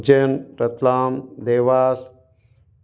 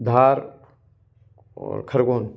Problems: constant background noise